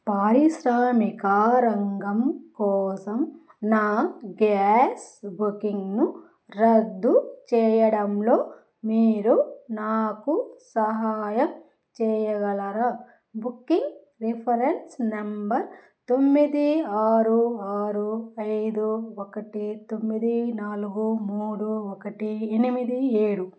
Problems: none marked